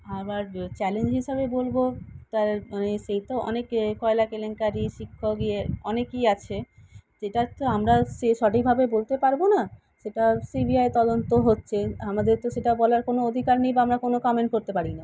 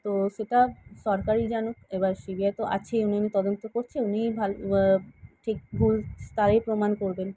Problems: constant background noise